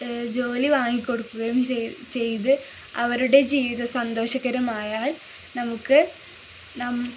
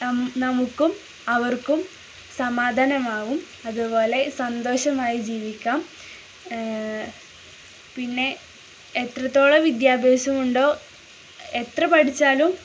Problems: none marked